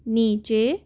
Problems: constant background noise